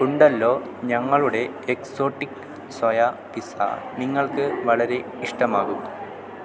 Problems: constant background noise